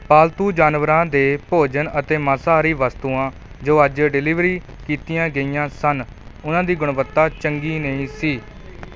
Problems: none marked